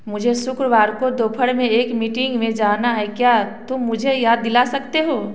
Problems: background sounds at intervals